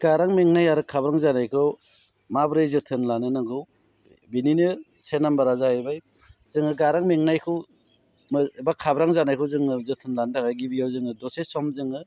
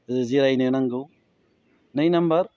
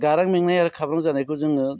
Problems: low volume